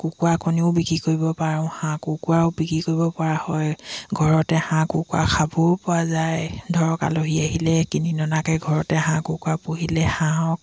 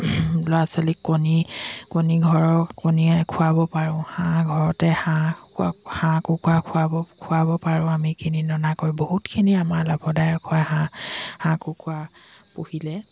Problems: constant background noise